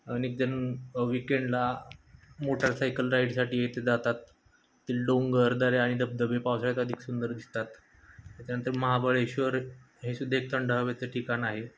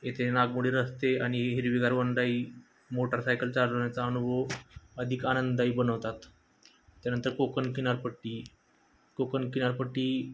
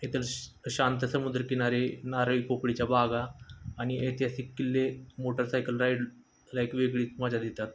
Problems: none marked